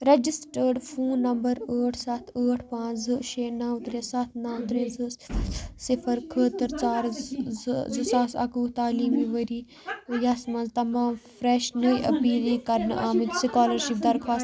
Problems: background conversations at intervals